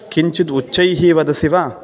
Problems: continuous background conversations